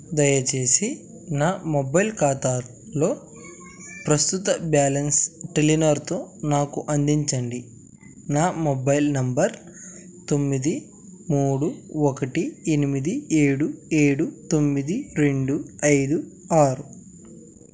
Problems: none marked